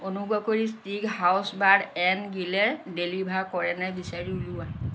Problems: none marked